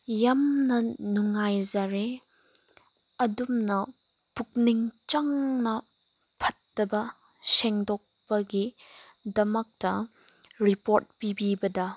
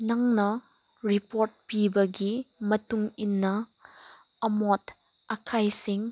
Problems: background sounds at intervals